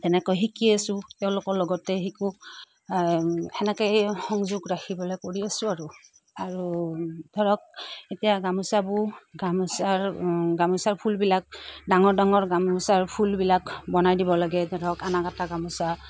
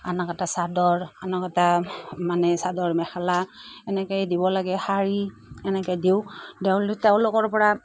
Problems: none marked